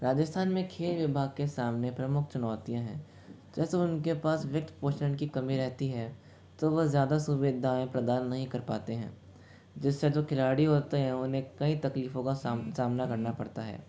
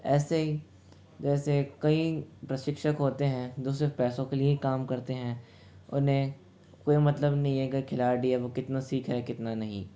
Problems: background sounds at intervals, low volume